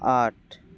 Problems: none marked